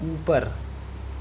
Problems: constant background noise